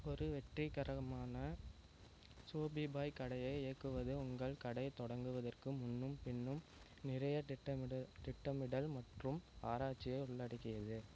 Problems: constant background noise